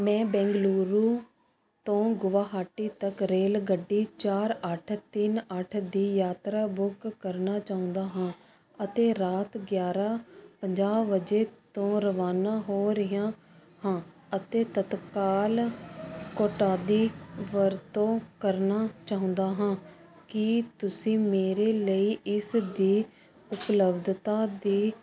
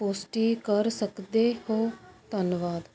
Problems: constant background noise